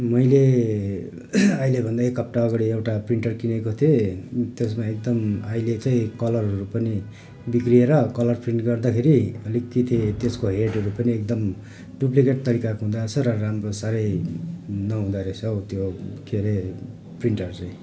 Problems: background sounds at intervals